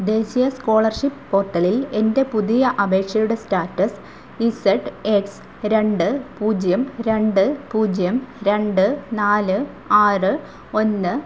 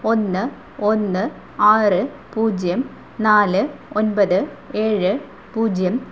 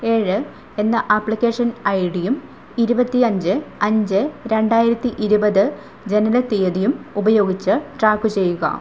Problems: constant background noise, low volume